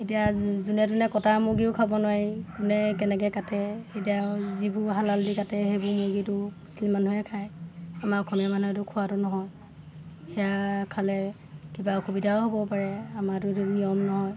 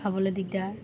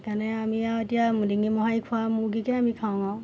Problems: constant background noise, background conversations at intervals